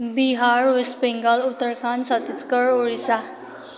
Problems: none marked